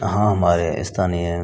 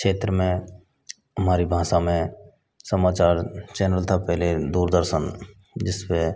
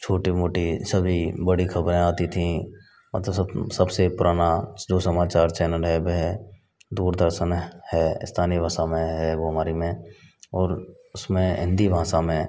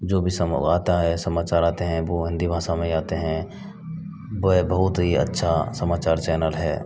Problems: constant background noise